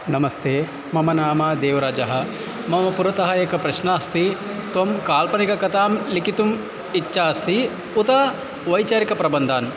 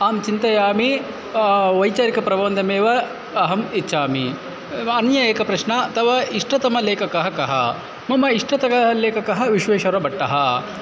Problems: constant background noise, background conversations at intervals